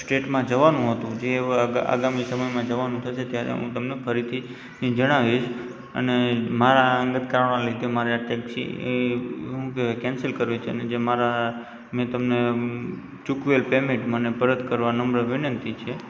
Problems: background sounds at intervals